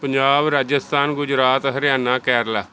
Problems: background conversations at intervals